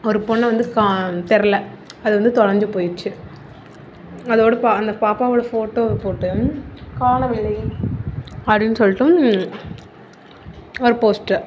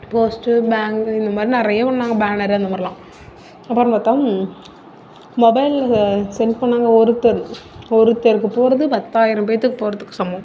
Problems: constant background noise